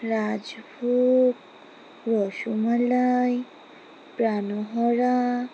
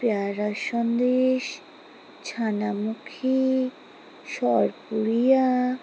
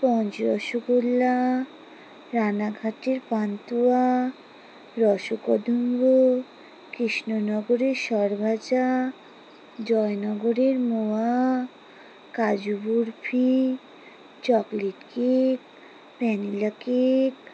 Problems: background sounds at intervals